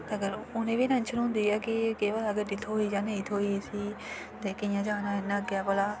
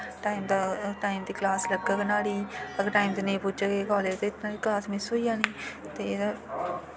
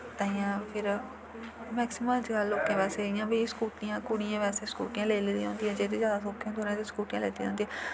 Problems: constant background noise